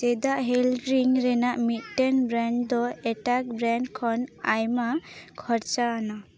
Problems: none marked